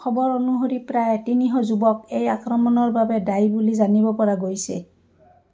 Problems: background sounds at intervals, background conversations at intervals